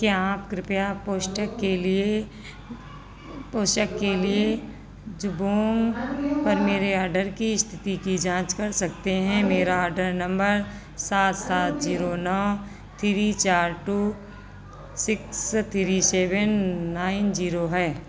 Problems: constant background noise